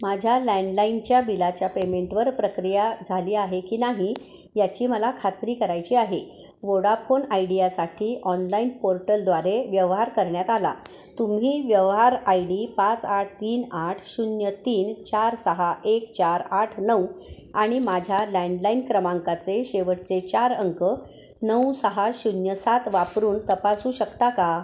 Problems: constant background noise, echo